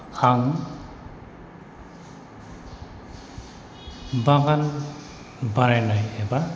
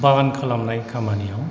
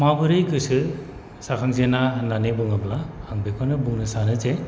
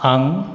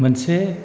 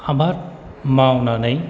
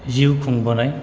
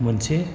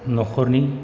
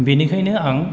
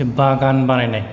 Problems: constant background noise